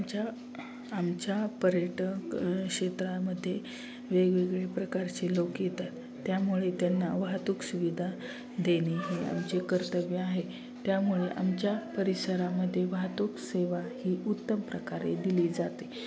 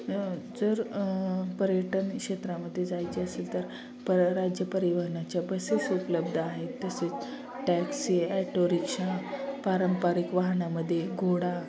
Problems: none marked